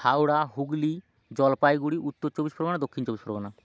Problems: background sounds at intervals